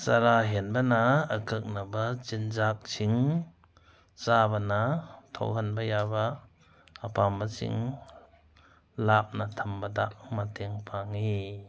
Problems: background sounds at intervals